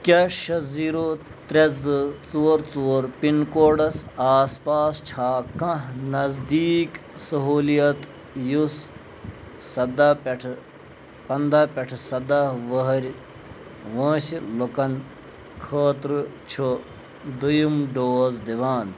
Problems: constant background noise